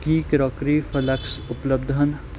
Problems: none marked